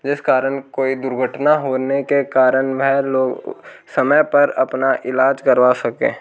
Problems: background sounds at intervals